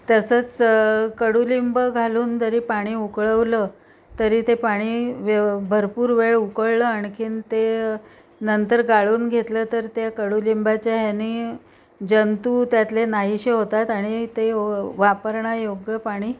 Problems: background sounds at intervals